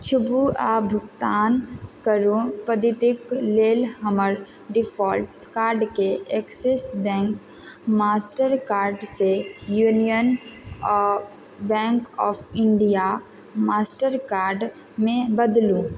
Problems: constant background noise